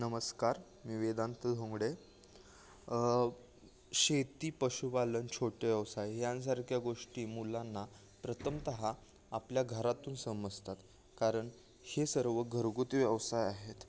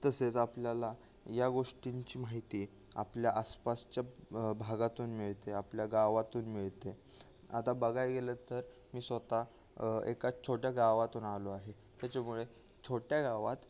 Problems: background sounds at intervals